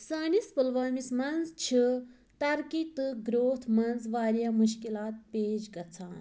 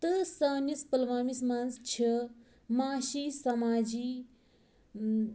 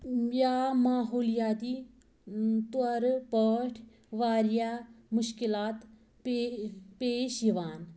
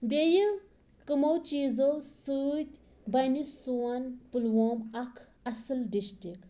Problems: background sounds at intervals